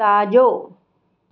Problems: none marked